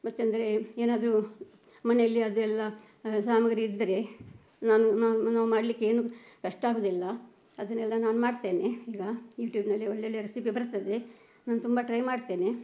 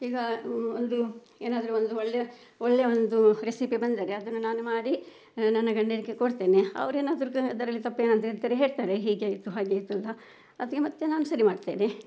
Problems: background sounds at intervals